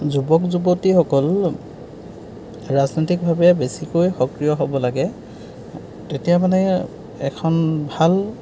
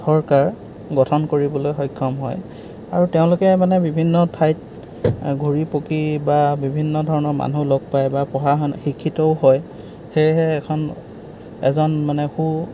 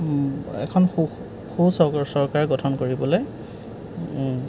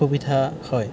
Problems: background sounds at intervals